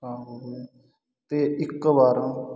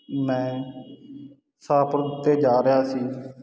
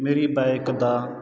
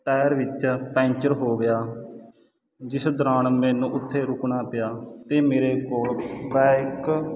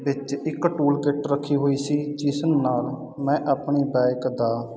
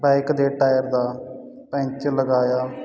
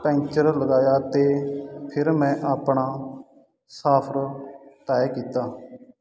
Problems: background sounds at intervals